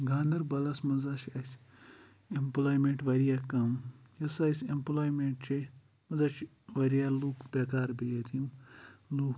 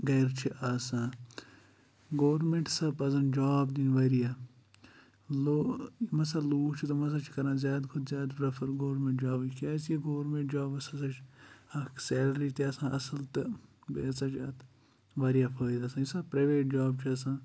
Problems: background sounds at intervals